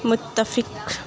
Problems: constant background noise